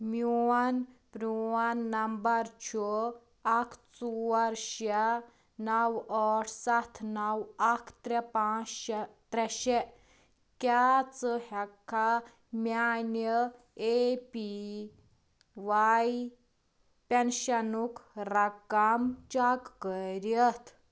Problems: background sounds at intervals